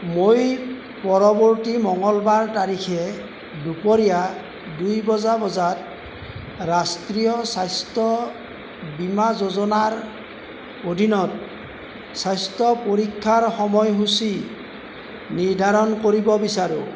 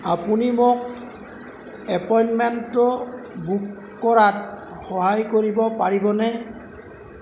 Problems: constant background noise